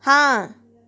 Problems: background sounds at intervals